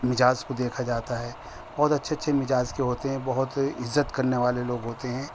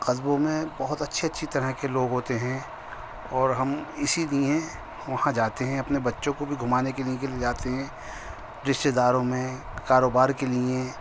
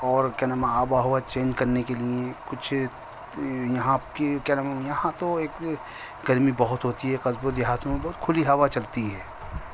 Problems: constant background noise